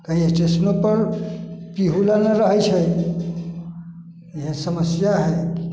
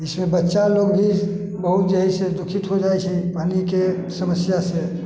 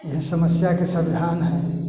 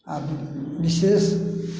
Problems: echo